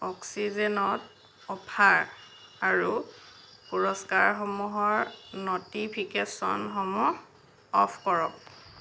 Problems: none marked